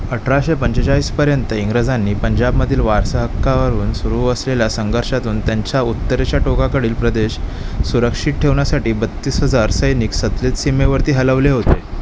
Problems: constant background noise